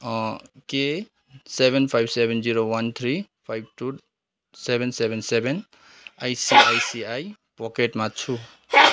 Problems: background sounds at intervals, continuous background conversations